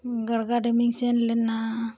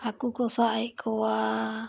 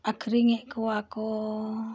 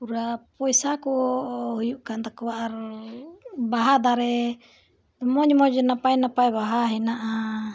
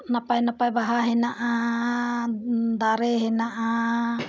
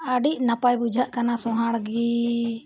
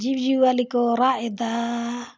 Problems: none marked